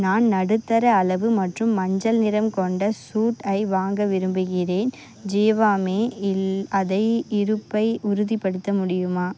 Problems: constant background noise